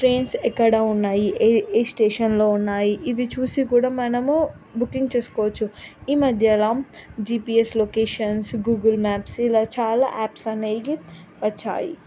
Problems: none marked